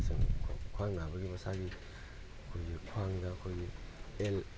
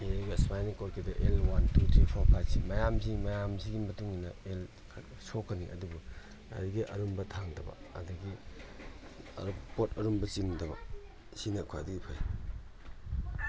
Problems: constant background noise